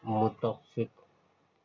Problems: constant background noise, low volume